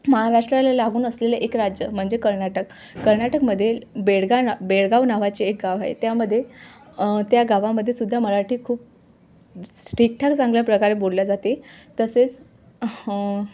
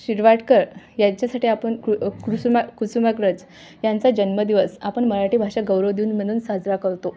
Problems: background sounds at intervals